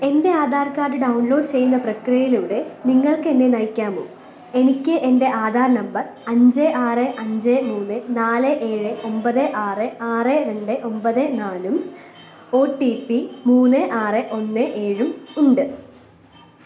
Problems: constant background noise